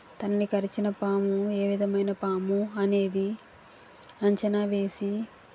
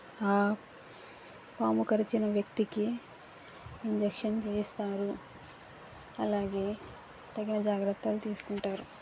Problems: constant background noise